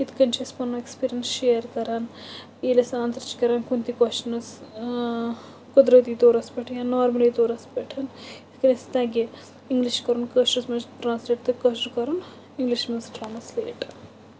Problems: constant background noise